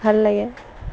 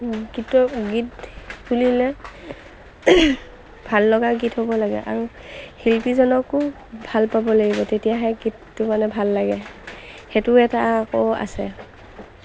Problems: constant background noise, background conversations at intervals